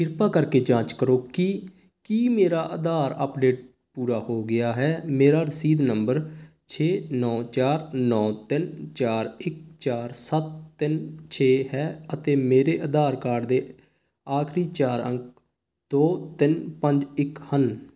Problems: constant background noise